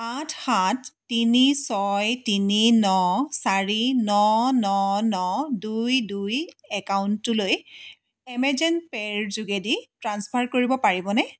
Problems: background sounds at intervals